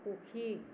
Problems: constant background noise